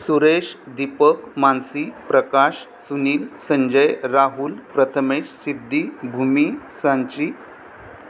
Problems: constant background noise, background conversations at intervals